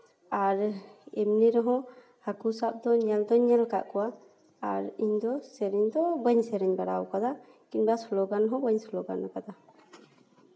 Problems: none marked